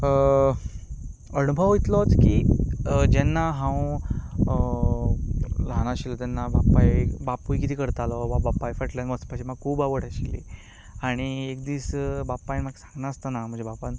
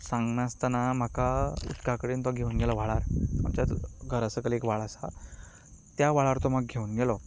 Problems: background conversations at intervals